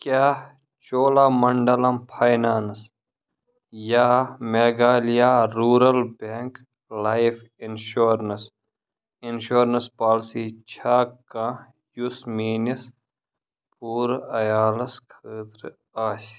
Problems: none marked